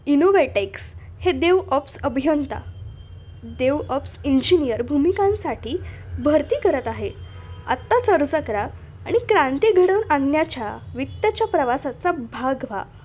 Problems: none marked